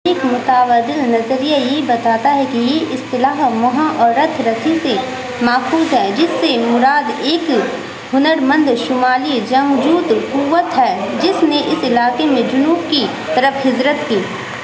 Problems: constant background noise